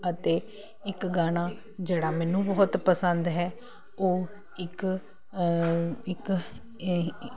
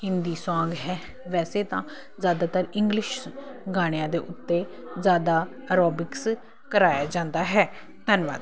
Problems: constant background noise